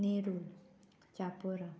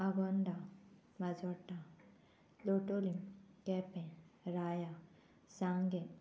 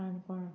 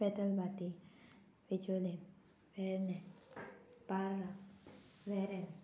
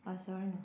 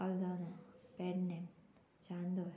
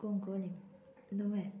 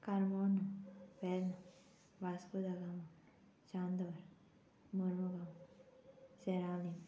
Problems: constant background noise